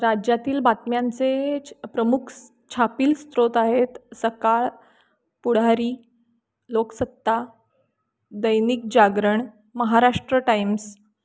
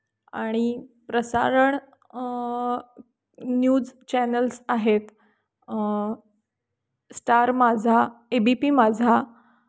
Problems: constant background noise